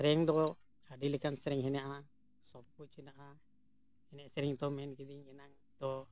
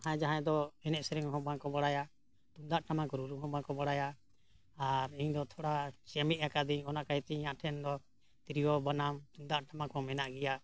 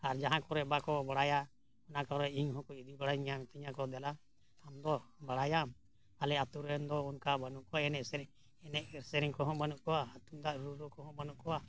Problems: none marked